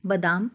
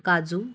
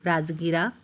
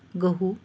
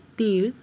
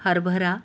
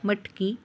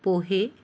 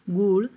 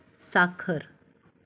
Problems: constant background noise, background conversations at intervals